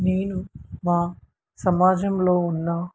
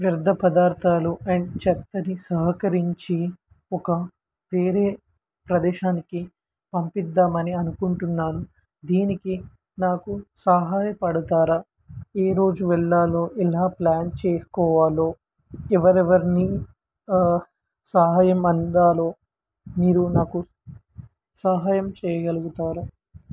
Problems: background sounds at intervals